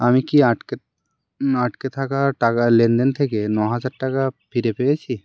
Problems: constant background noise